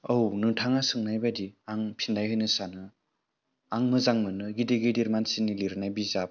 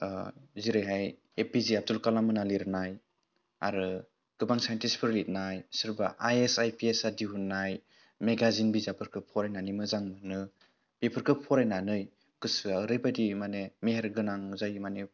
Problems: none marked